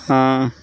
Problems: none marked